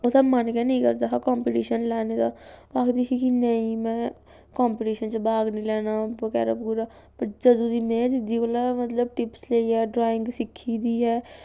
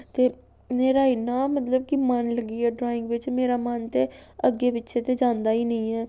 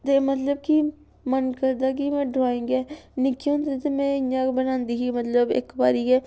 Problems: none marked